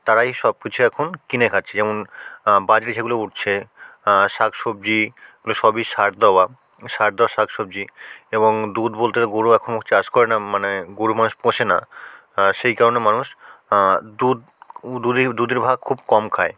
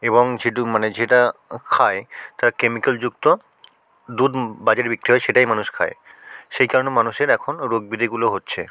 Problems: constant background noise